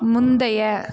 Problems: background sounds at intervals, background conversations at intervals